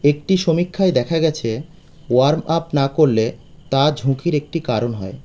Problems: constant background noise